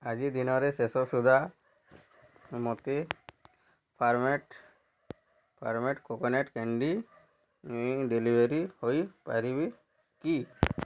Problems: none marked